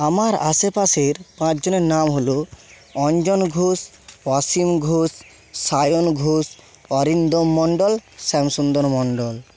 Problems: constant background noise